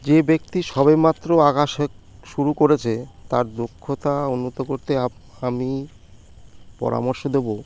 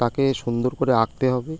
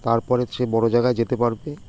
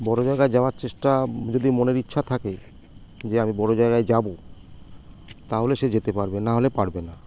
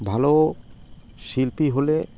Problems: none marked